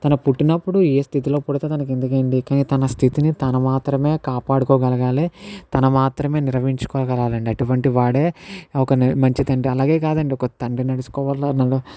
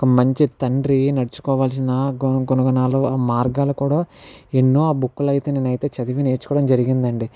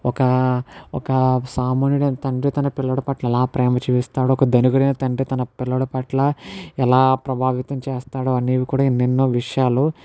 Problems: background sounds at intervals